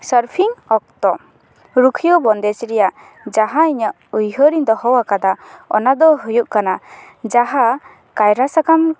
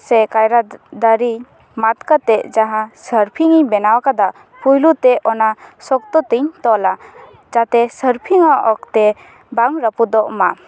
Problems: constant background noise